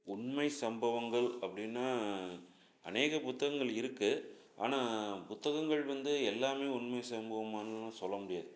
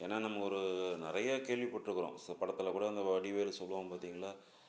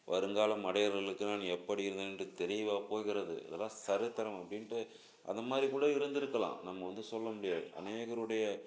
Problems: background sounds at intervals